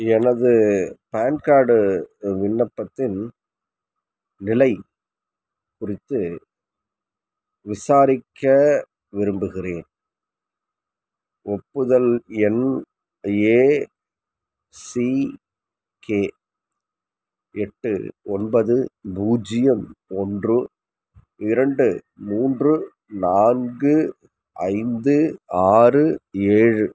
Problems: none marked